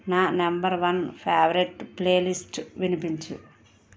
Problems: background conversations at intervals